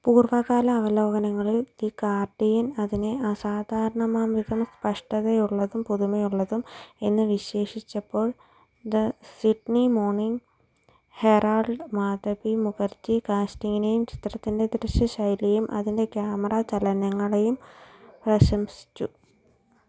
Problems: low volume